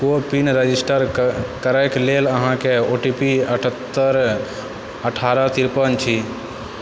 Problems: constant background noise